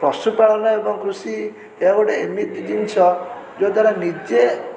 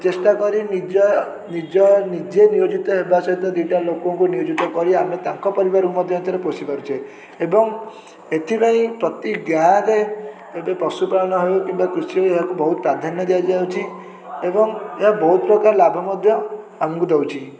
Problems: constant background noise